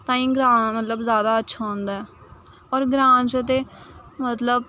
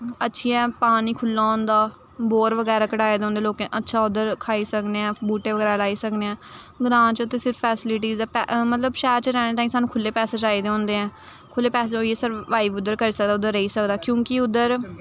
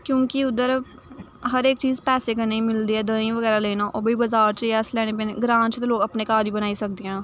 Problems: none marked